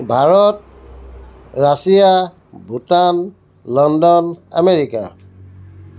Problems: background sounds at intervals